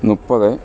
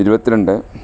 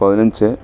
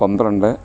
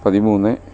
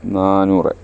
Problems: none marked